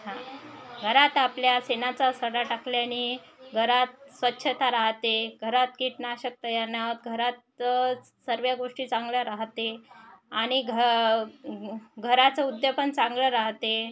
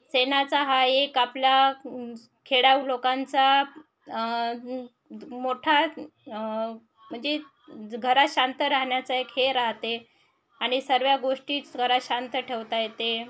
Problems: none marked